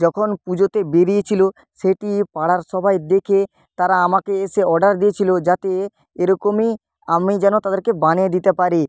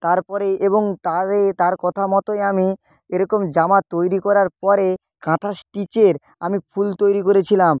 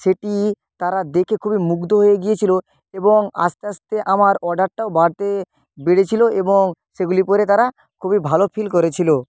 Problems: none marked